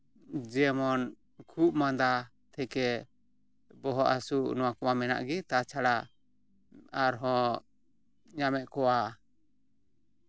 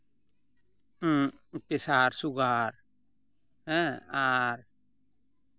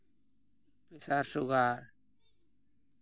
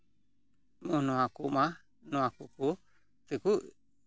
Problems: background sounds at intervals